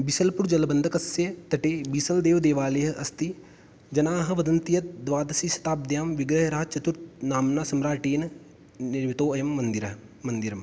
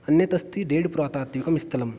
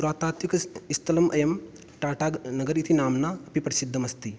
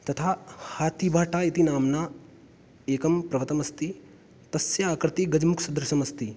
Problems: none marked